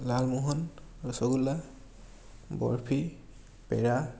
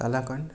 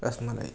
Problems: none marked